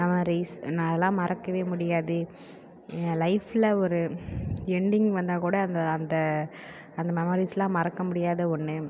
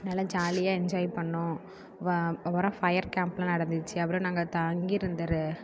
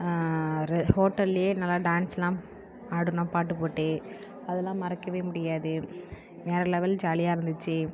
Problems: low volume